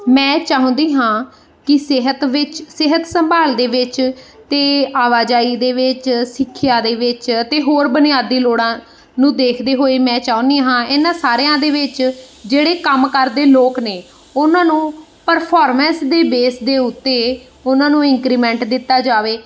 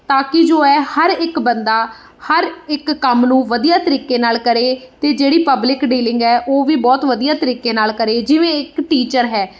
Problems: background sounds at intervals